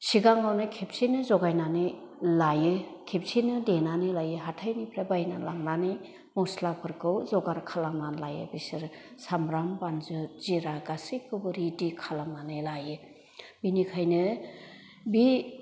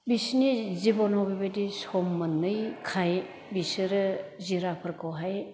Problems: none marked